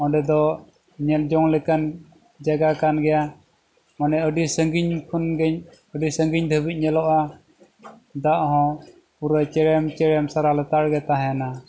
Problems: background sounds at intervals